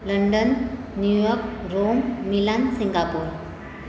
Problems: constant background noise